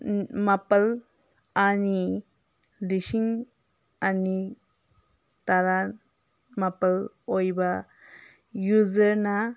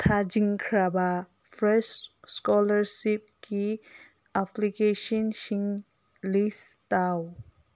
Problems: none marked